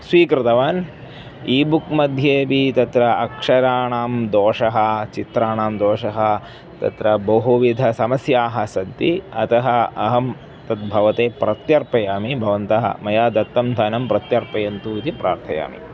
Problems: background sounds at intervals